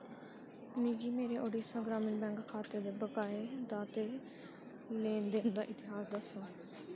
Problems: constant background noise, low volume